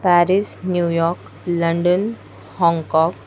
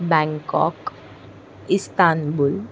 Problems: constant background noise